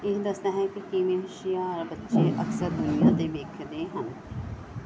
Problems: background sounds at intervals